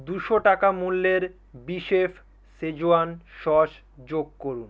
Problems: none marked